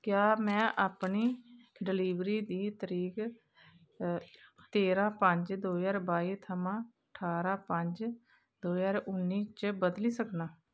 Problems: none marked